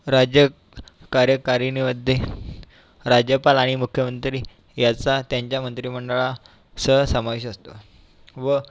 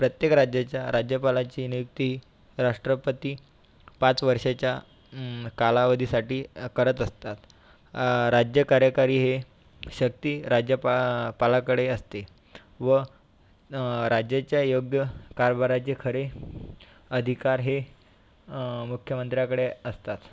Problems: constant background noise